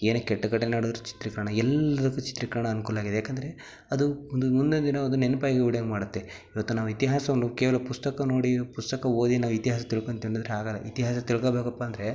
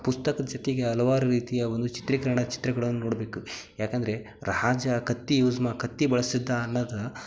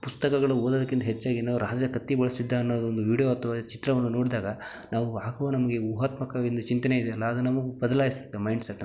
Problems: none marked